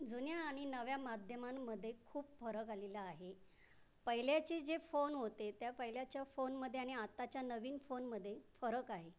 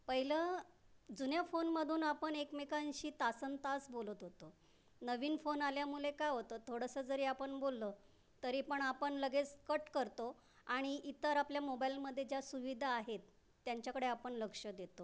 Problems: background sounds at intervals